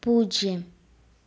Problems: background sounds at intervals, low volume